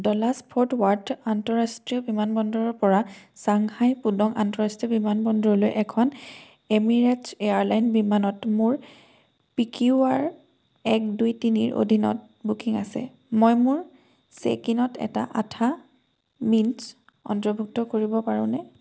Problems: none marked